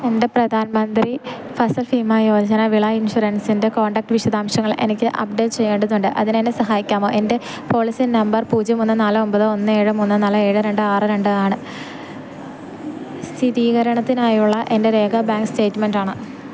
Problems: none marked